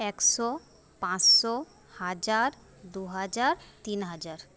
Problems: constant background noise